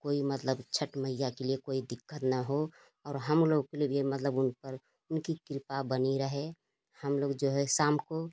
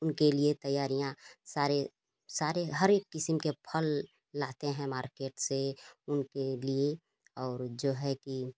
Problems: constant background noise